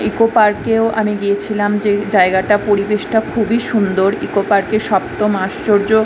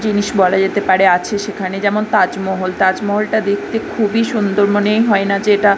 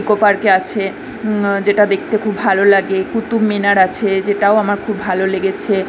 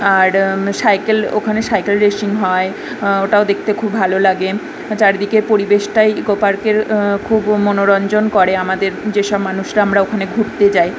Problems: none marked